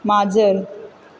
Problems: constant background noise